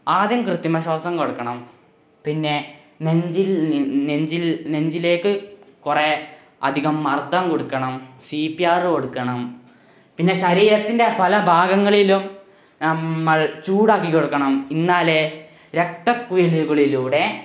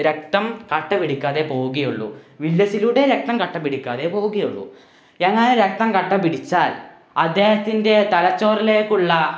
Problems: background sounds at intervals